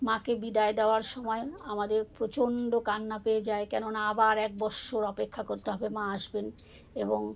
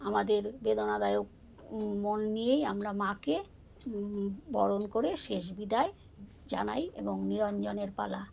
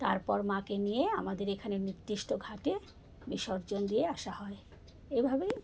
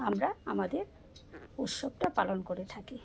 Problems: background sounds at intervals